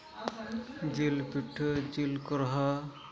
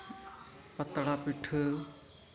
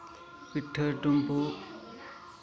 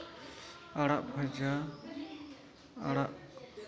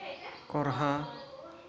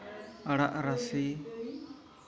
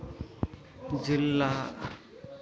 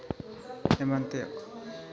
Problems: background sounds at intervals, low volume